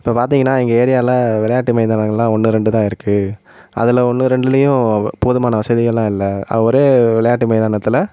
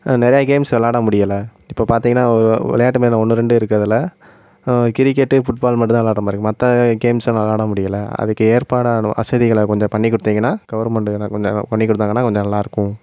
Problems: constant background noise